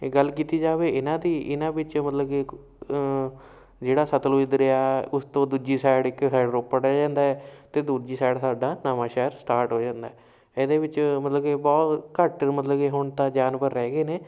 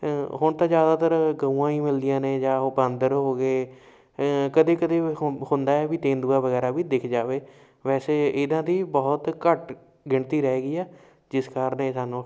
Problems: background sounds at intervals